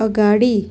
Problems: constant background noise